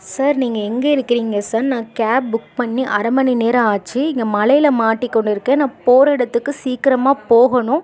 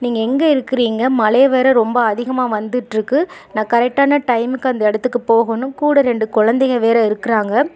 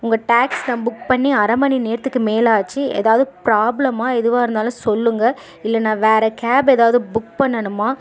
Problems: none marked